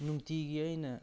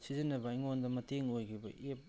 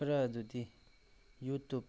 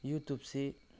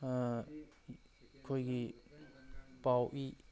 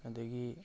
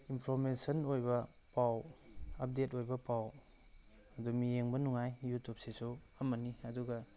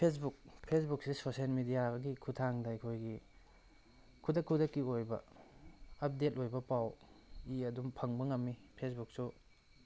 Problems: background sounds at intervals